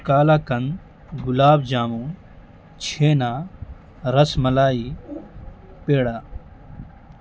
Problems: constant background noise